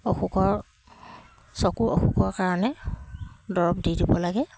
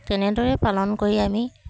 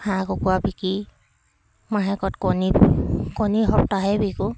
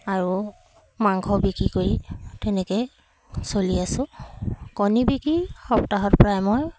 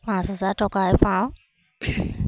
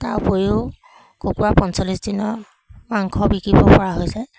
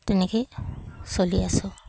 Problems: none marked